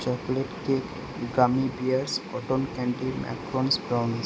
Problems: constant background noise